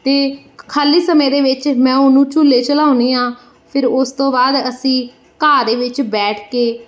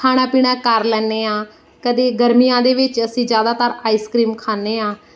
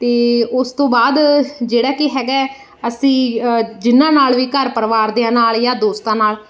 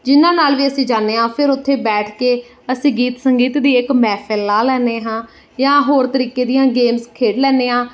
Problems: background sounds at intervals